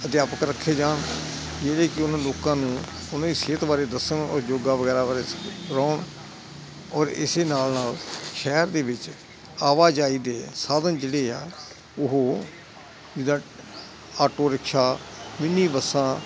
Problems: none marked